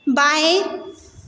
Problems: constant background noise, echo